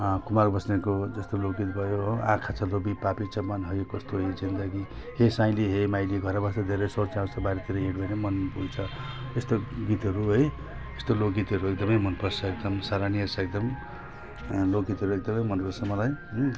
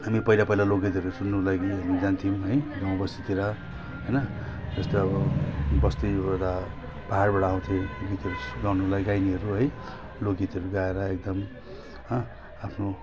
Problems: constant background noise